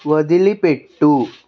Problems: background conversations at intervals